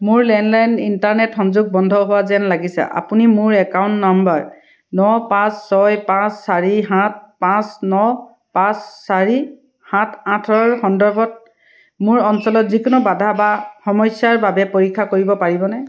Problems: none marked